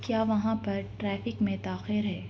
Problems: constant background noise